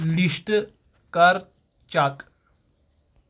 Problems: none marked